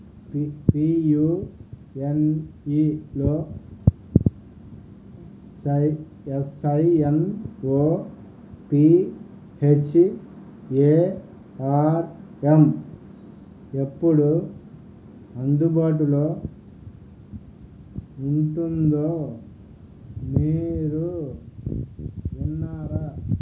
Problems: background sounds at intervals, low volume